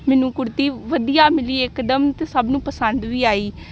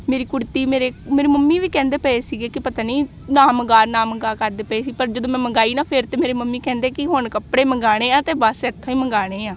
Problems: none marked